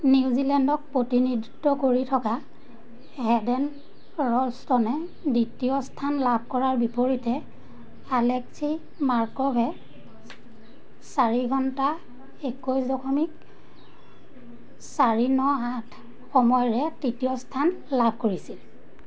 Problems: constant background noise